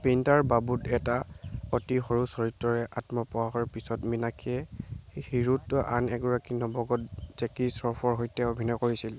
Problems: none marked